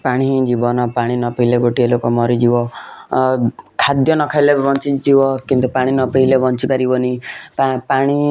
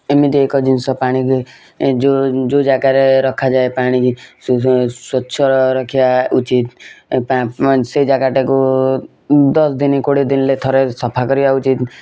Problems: constant background noise